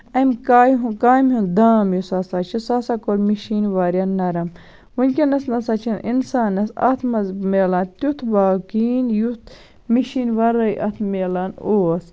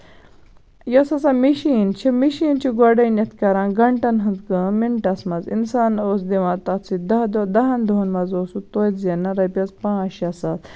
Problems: constant background noise